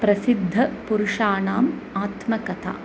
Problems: constant background noise